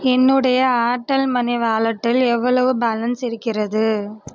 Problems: none marked